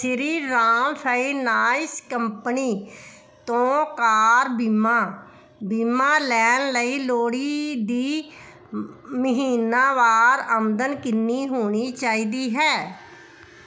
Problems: none marked